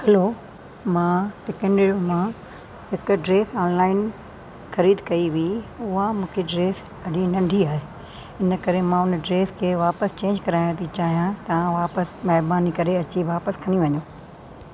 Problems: constant background noise